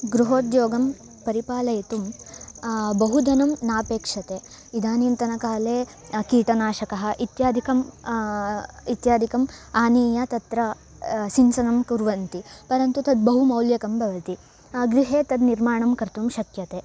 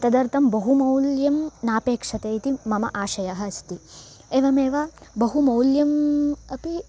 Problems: none marked